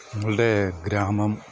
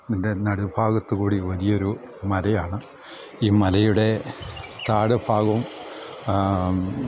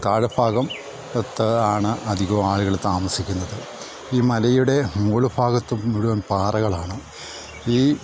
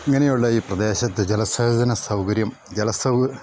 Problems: background sounds at intervals